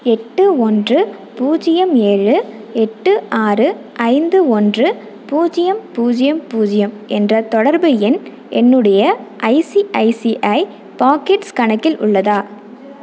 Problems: none marked